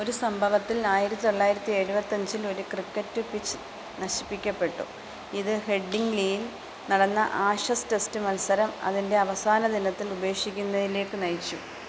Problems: constant background noise